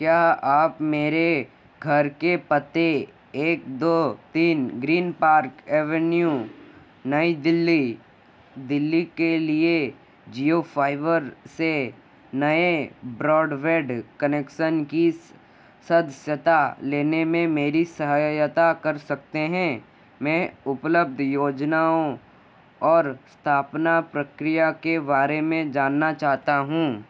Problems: constant background noise